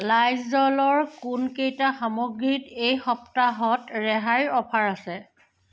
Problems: none marked